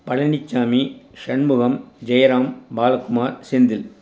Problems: none marked